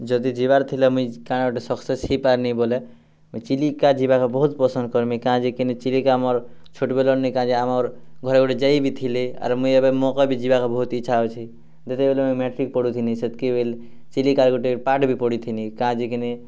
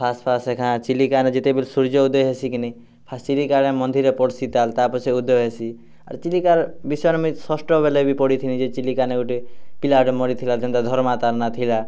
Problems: none marked